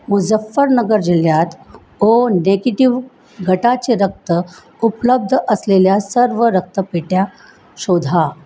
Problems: background sounds at intervals